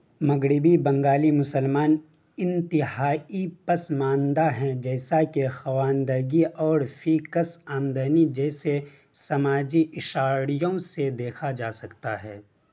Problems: constant background noise